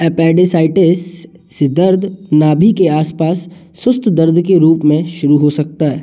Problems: none marked